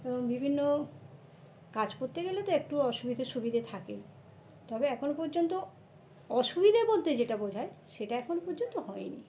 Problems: constant background noise, background conversations at intervals